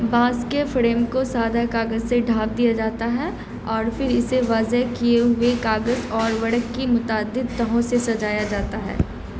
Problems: constant background noise